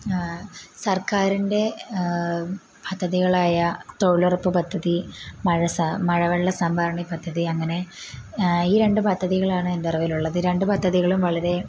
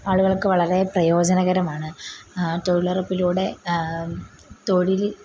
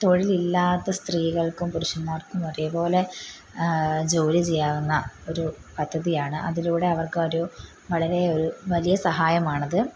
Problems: constant background noise